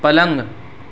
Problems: constant background noise